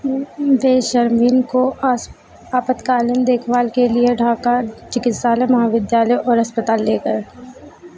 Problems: constant background noise